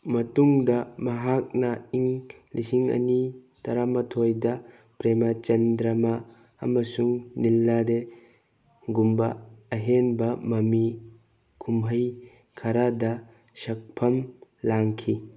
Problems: none marked